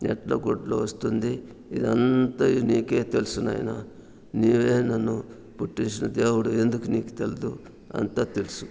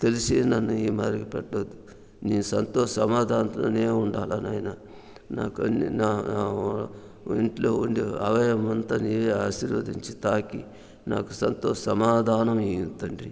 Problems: background sounds at intervals